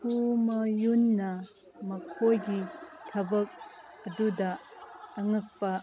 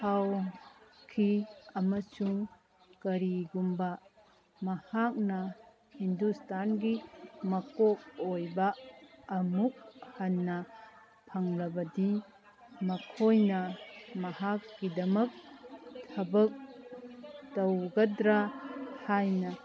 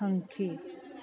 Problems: background conversations at intervals